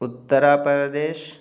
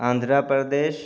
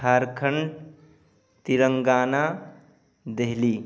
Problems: background sounds at intervals, background conversations at intervals